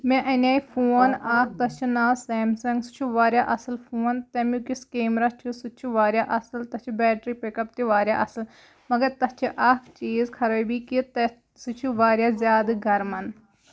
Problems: background sounds at intervals